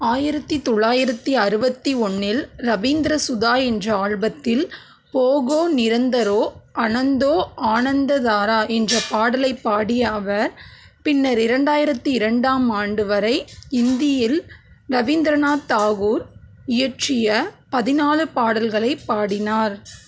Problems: background sounds at intervals